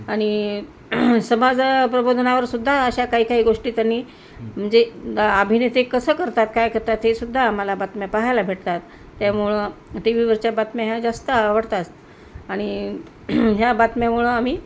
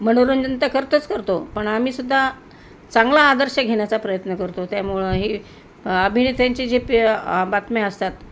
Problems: constant background noise